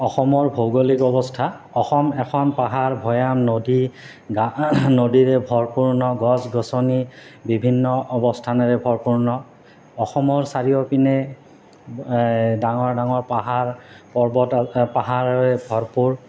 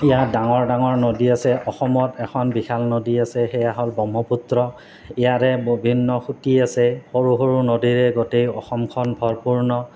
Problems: constant background noise